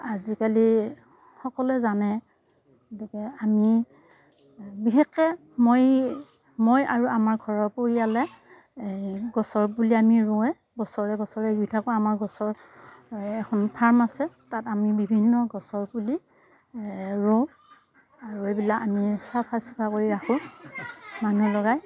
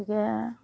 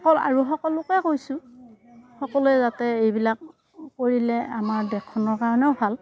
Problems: none marked